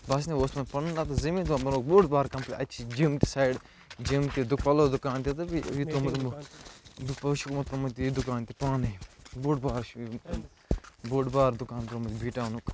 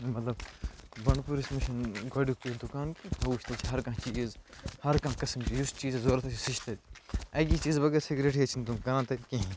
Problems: constant background noise